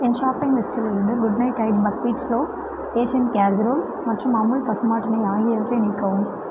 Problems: background sounds at intervals